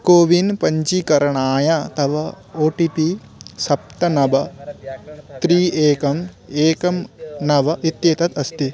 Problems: background conversations at intervals